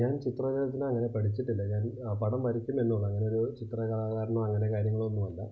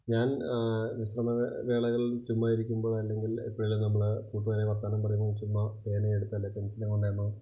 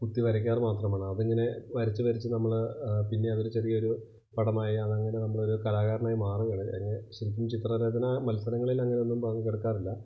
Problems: low volume